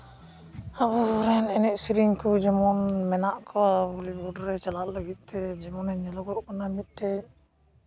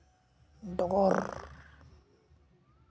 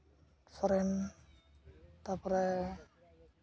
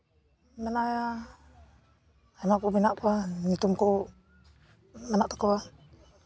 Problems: constant background noise